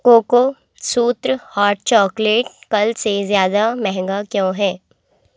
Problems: none marked